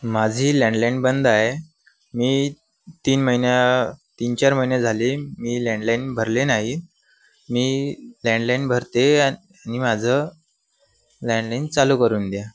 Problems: constant background noise